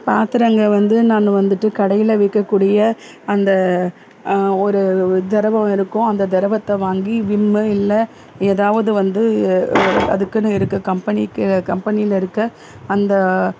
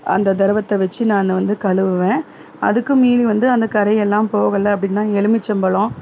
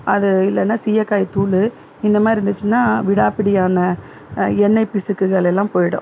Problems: none marked